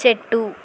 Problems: constant background noise